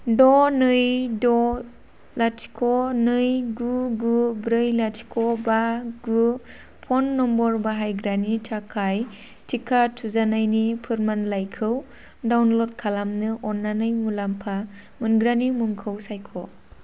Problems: constant background noise